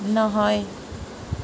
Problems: none marked